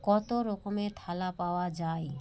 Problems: none marked